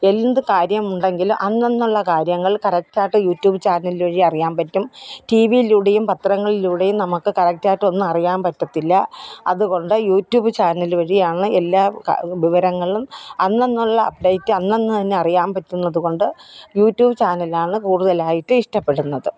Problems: background sounds at intervals